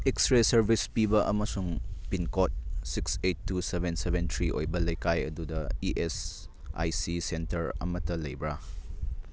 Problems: none marked